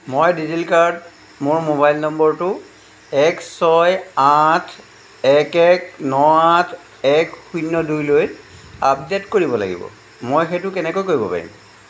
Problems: background sounds at intervals